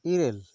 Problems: constant background noise